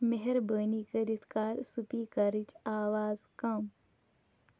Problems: none marked